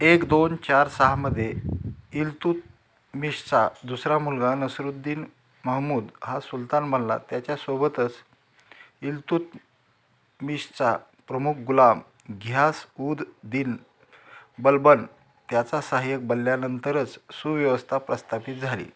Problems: background sounds at intervals